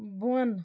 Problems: none marked